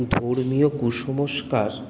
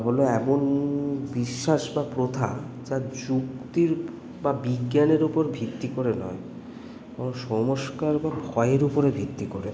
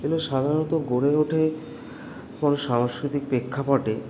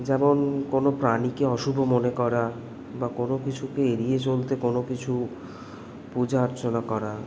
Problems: constant background noise